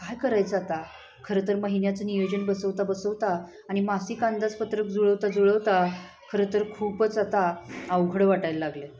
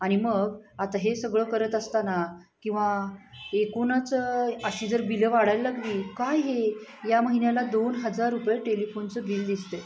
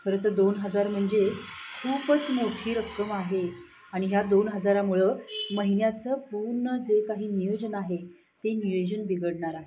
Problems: constant background noise, continuous background conversations